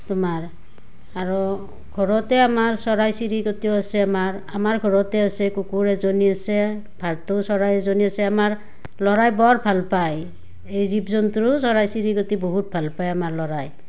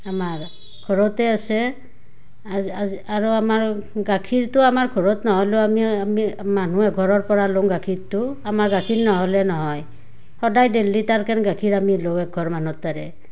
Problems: background sounds at intervals